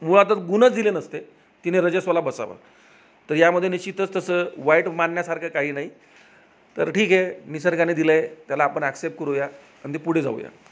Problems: none marked